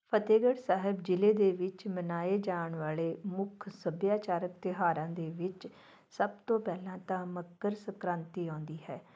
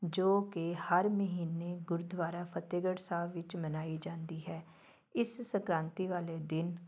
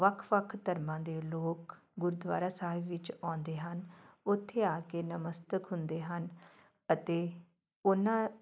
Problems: background sounds at intervals, background conversations at intervals